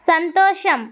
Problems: none marked